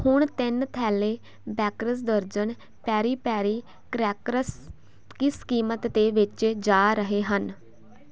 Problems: constant background noise